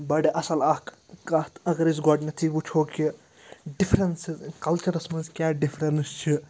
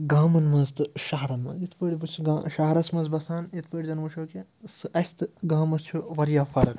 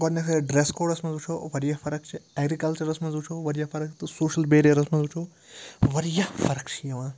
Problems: constant background noise